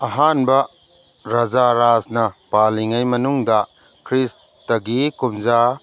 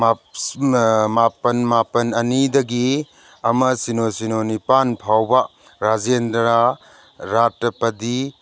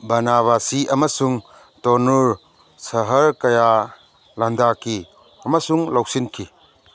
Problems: background sounds at intervals